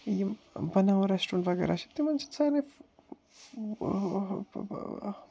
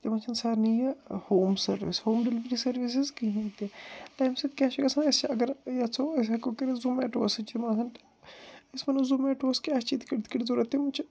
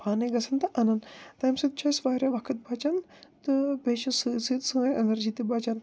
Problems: low volume